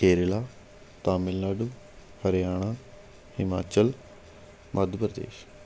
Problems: constant background noise